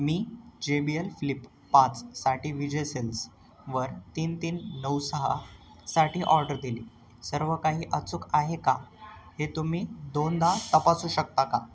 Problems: none marked